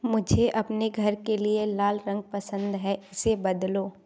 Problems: background sounds at intervals